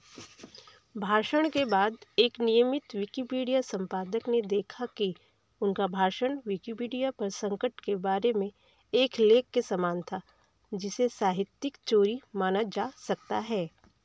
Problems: background sounds at intervals, background conversations at intervals